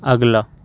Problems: none marked